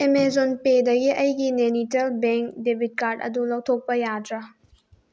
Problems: none marked